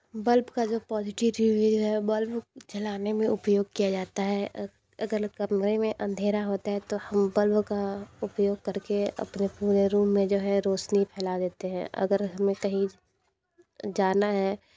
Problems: background sounds at intervals